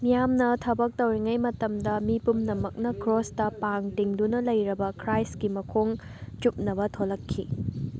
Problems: background sounds at intervals, background conversations at intervals